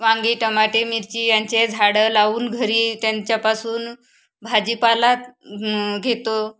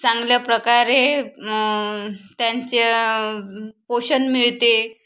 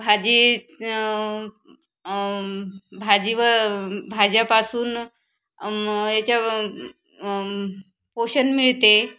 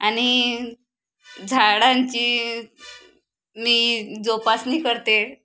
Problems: constant background noise, background conversations at intervals